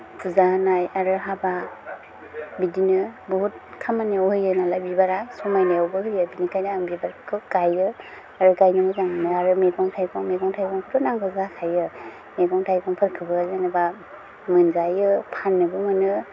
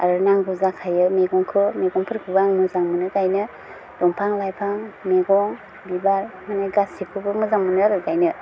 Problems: low volume